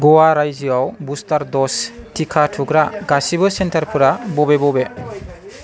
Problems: constant background noise